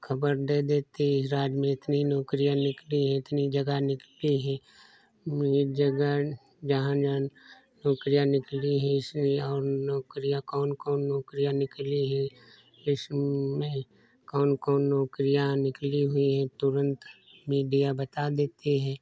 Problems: none marked